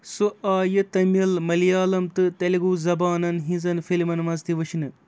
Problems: none marked